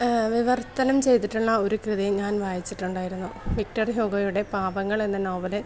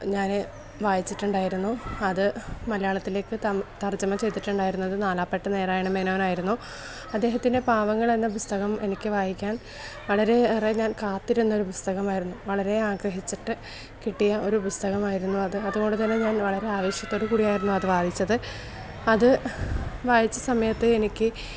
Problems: background sounds at intervals